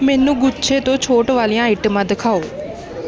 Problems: constant background noise